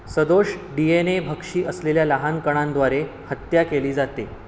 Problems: constant background noise